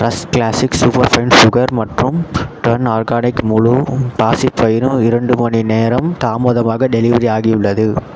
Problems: background sounds at intervals